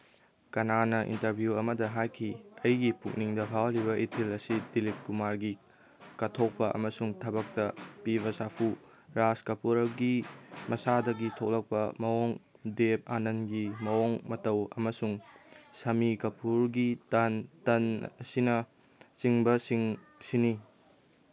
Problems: background sounds at intervals, background conversations at intervals